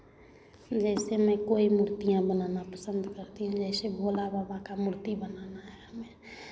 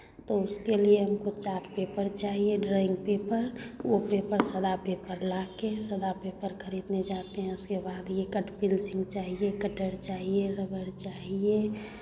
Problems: none marked